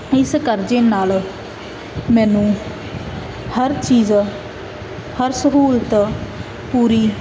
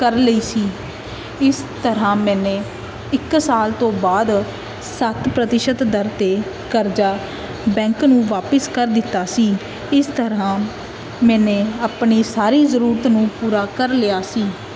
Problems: constant background noise